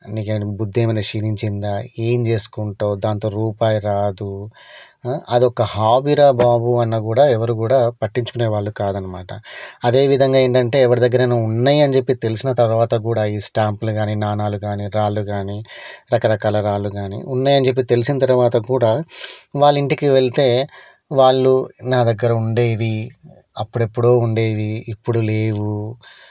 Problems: none marked